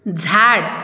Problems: none marked